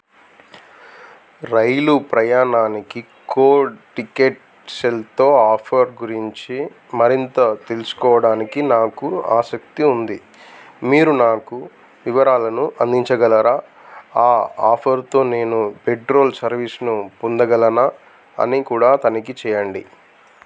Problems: constant background noise